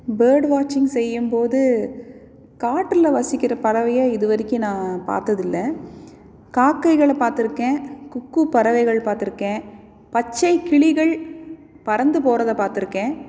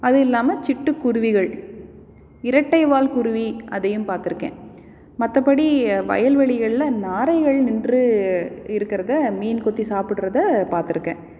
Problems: none marked